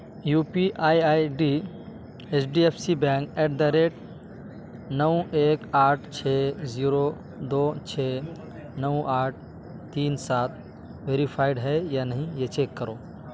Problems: constant background noise